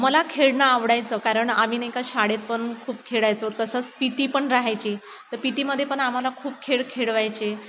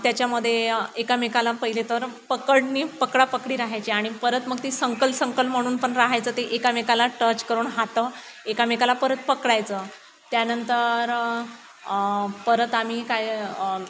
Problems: constant background noise